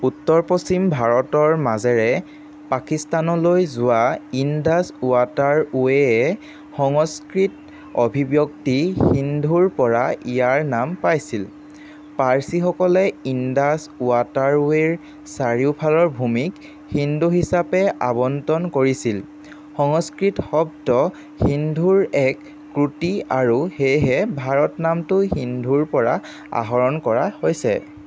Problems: constant background noise